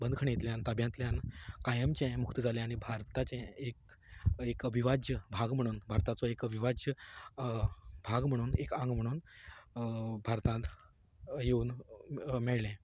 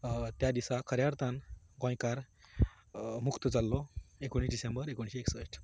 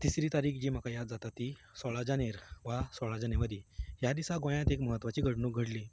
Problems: continuous background conversations